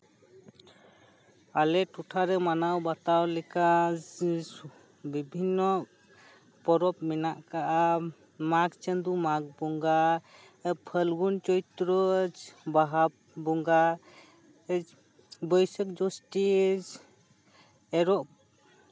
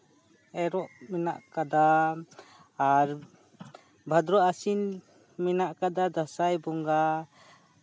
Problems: constant background noise